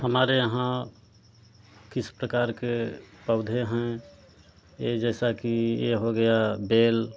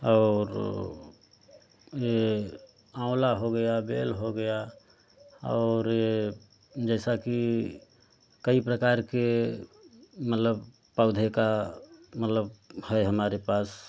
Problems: constant background noise